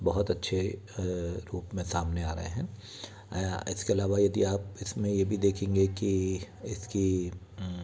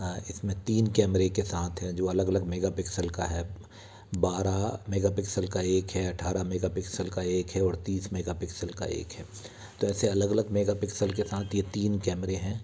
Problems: constant background noise, background conversations at intervals